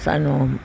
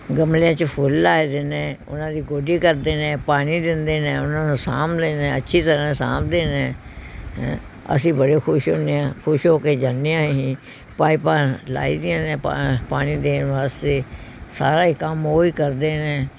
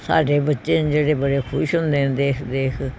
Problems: background sounds at intervals